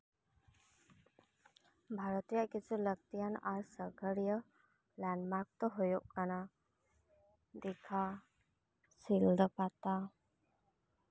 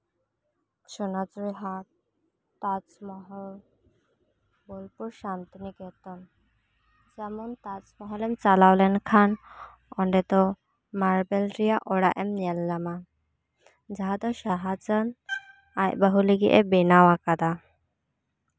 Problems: none marked